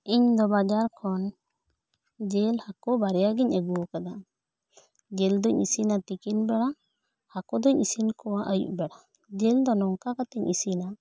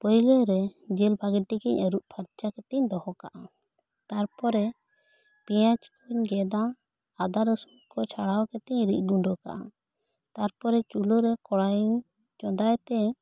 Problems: none marked